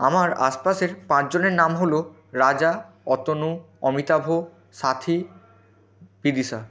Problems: continuous background conversations